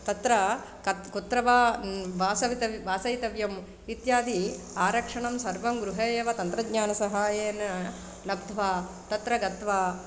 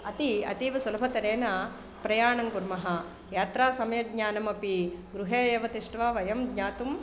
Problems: constant background noise